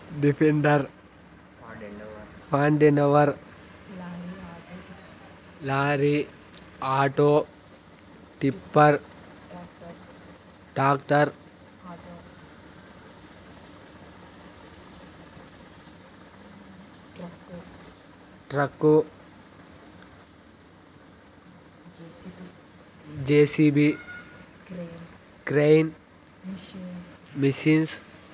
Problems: constant background noise, background conversations at intervals